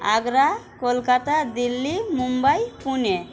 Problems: constant background noise